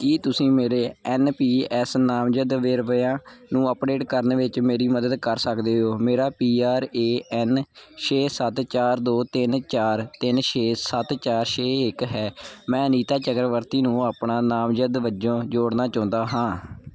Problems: none marked